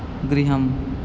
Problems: constant background noise